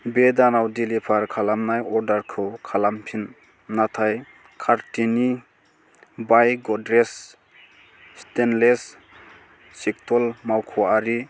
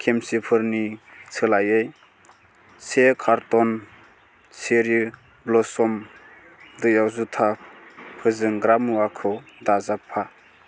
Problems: constant background noise